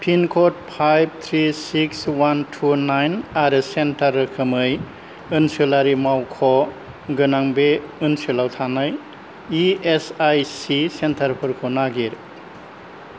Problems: none marked